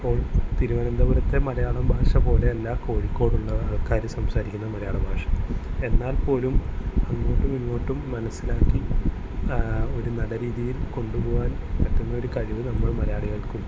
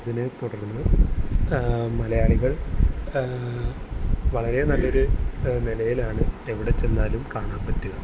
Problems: constant background noise